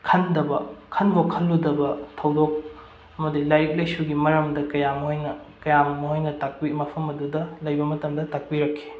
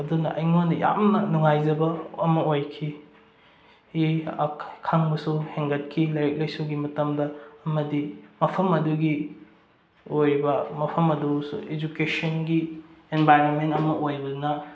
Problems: none marked